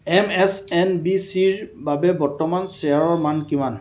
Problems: none marked